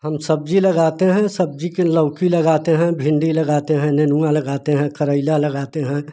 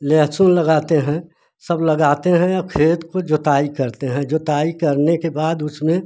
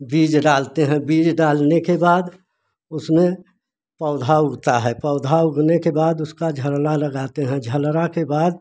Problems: none marked